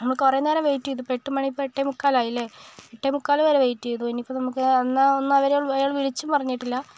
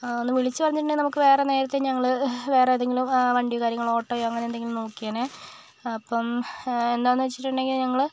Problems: none marked